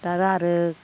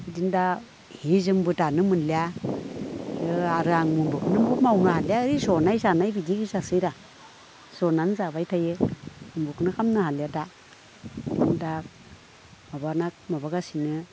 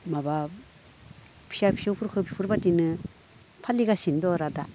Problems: none marked